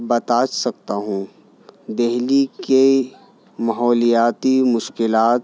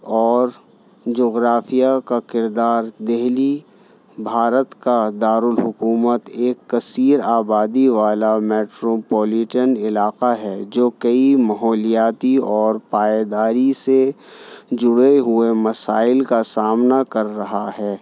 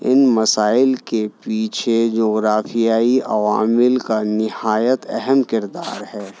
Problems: none marked